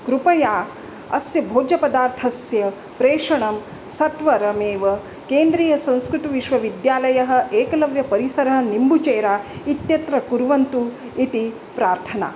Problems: constant background noise